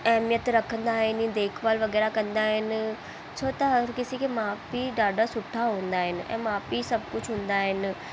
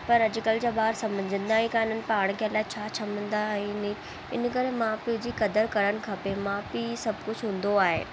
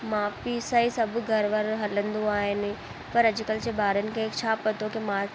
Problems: constant background noise